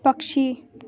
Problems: none marked